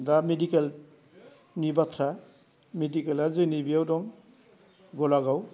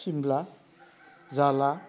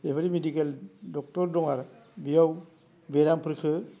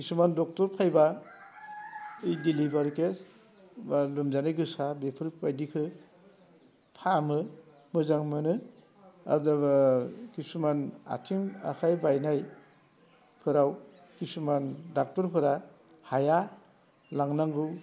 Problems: constant background noise